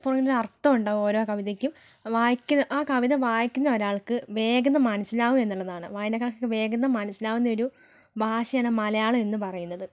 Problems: none marked